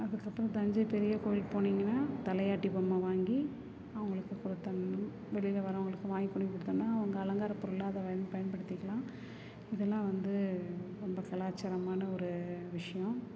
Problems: low volume